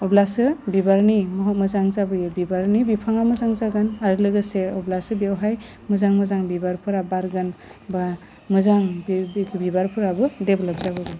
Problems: low volume